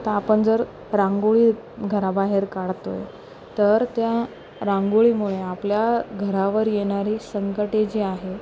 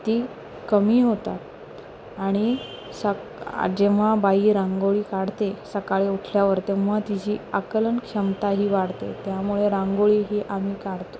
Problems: none marked